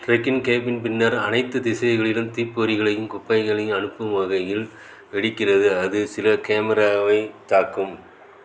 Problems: none marked